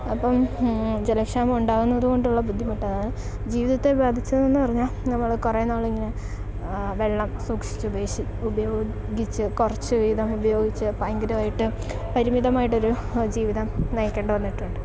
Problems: constant background noise